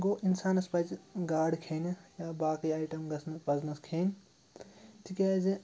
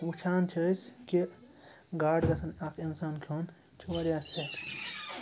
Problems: constant background noise